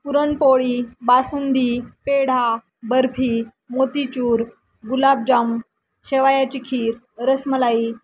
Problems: constant background noise